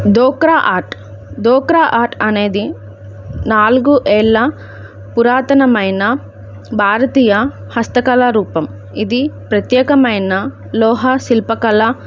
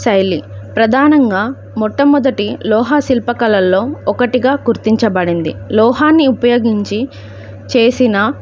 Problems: none marked